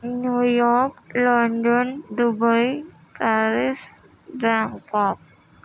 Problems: constant background noise, low volume